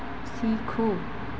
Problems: constant background noise